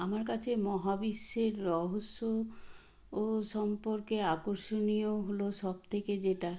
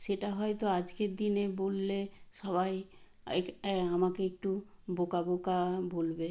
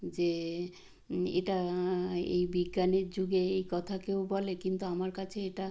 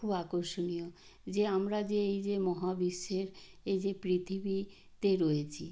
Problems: background sounds at intervals